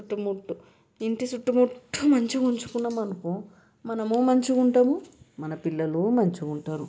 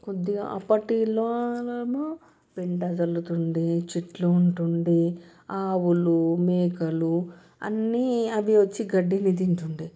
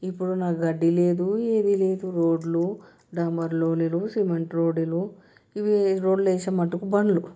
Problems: background sounds at intervals